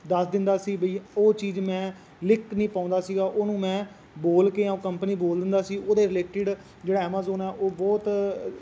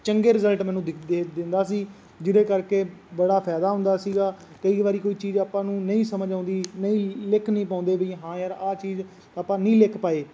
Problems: constant background noise